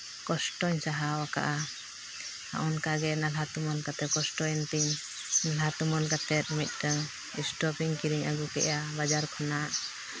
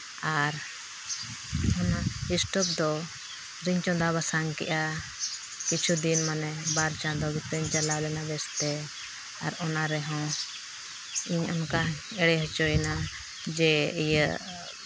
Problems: constant background noise